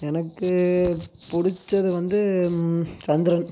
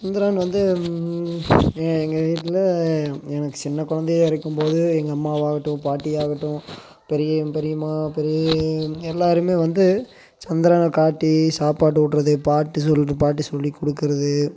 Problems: constant background noise